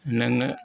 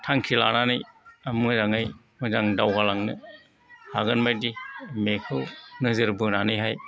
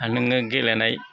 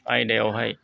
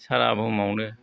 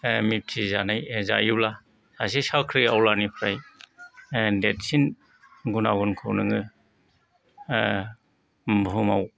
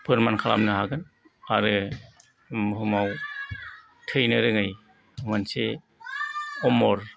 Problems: background sounds at intervals, background conversations at intervals